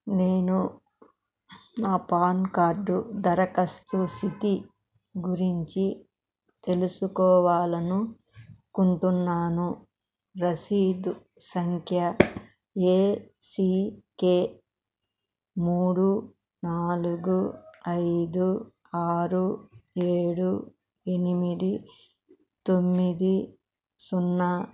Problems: none marked